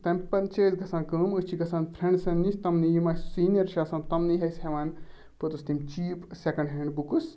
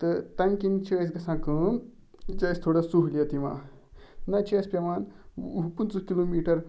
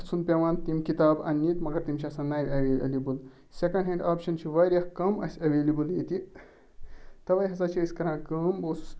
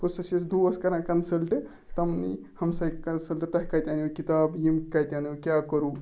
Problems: none marked